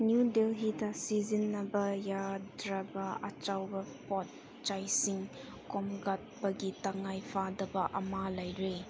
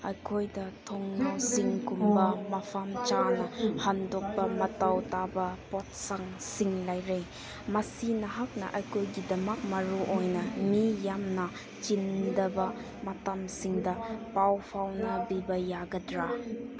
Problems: background sounds at intervals, background conversations at intervals